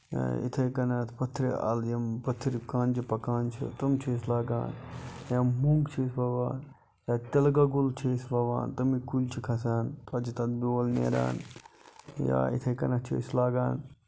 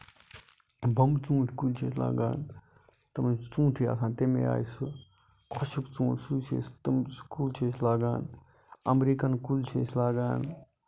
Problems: none marked